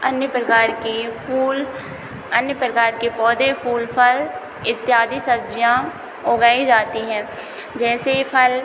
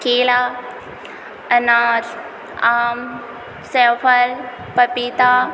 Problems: constant background noise